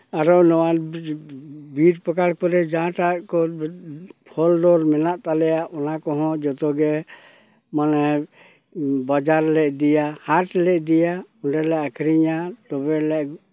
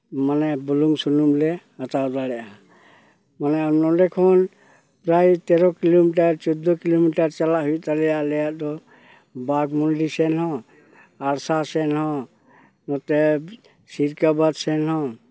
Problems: background sounds at intervals